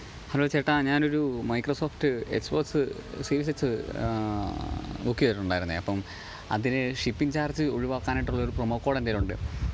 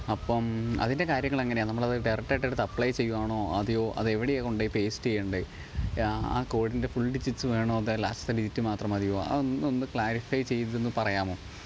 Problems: background sounds at intervals